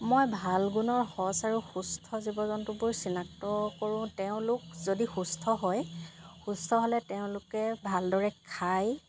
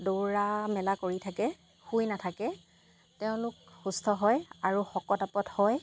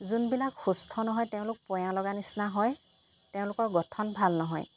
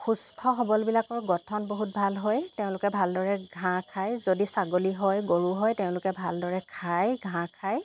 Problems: none marked